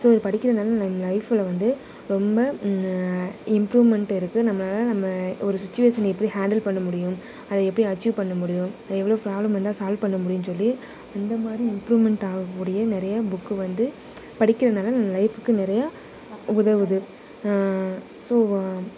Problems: constant background noise